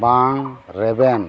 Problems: none marked